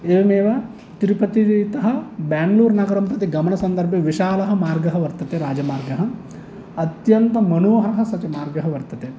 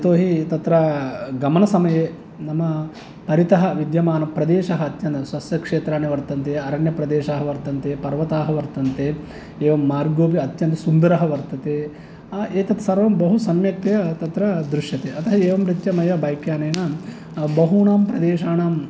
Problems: none marked